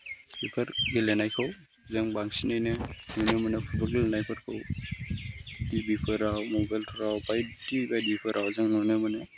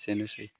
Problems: background sounds at intervals